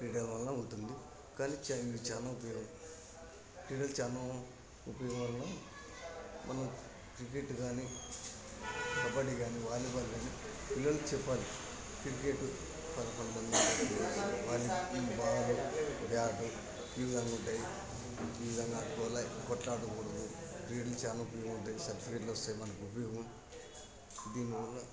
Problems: constant background noise, continuous background conversations